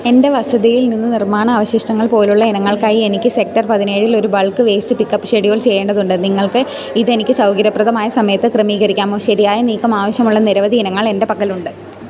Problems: continuous background conversations